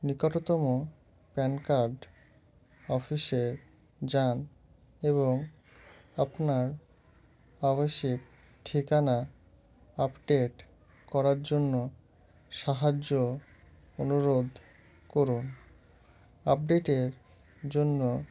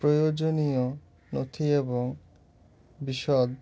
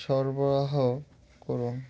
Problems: none marked